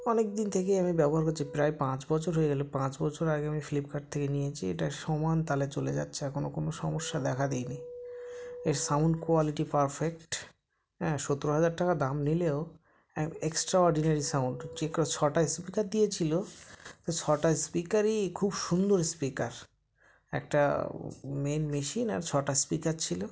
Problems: background sounds at intervals, background conversations at intervals